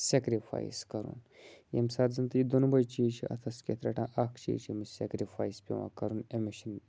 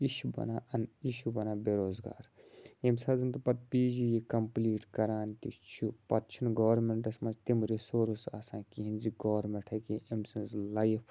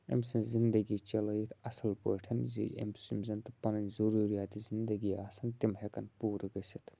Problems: none marked